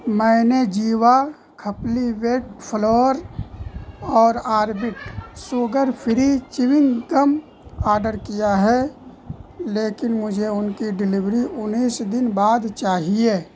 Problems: constant background noise